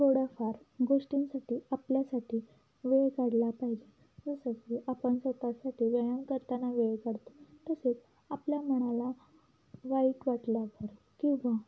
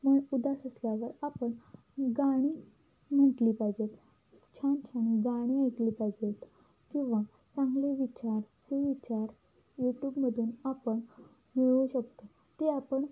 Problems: low volume